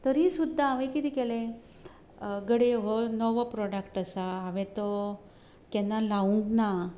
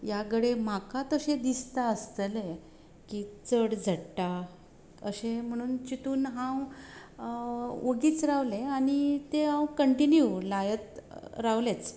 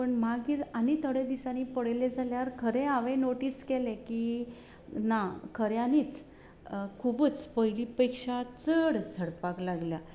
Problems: background sounds at intervals